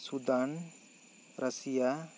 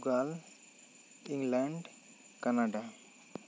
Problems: constant background noise